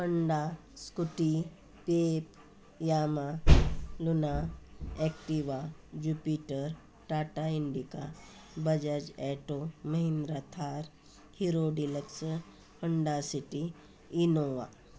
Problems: constant background noise